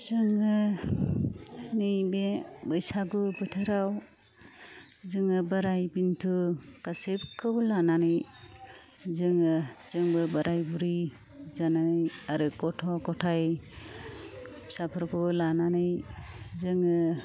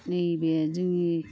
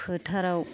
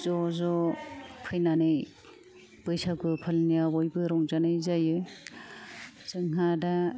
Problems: low volume